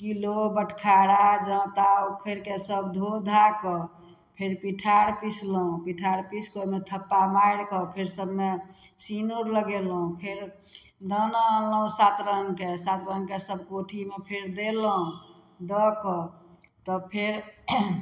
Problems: none marked